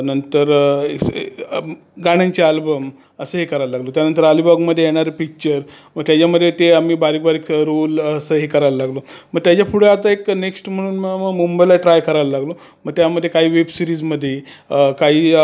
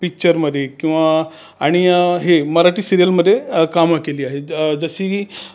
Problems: constant background noise, background conversations at intervals